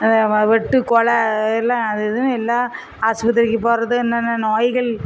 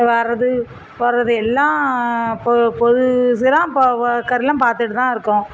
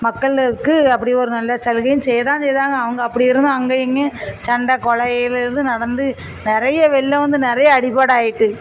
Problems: constant background noise